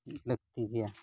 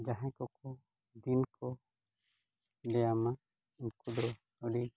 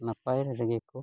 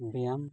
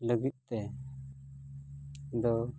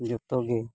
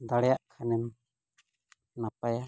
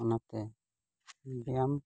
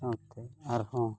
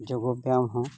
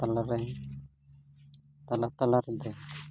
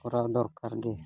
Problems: background sounds at intervals